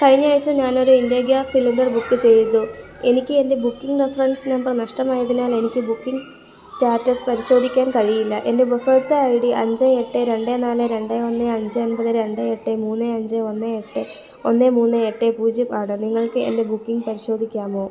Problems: background conversations at intervals, low volume